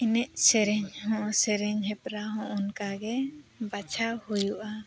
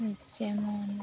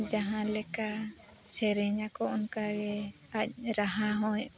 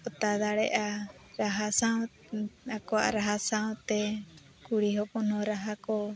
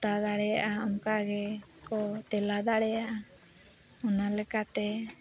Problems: constant background noise, continuous background conversations, low volume